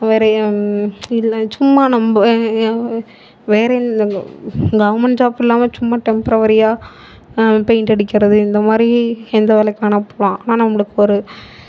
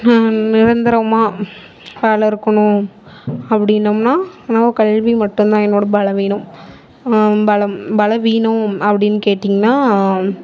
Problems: background sounds at intervals